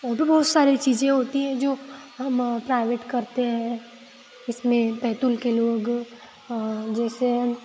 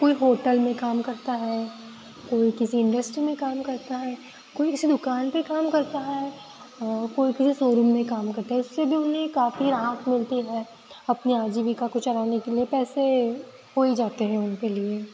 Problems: constant background noise